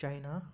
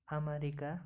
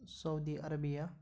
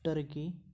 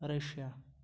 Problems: none marked